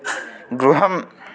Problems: constant background noise